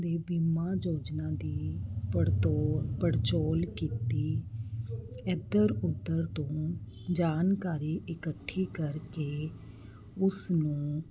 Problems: constant background noise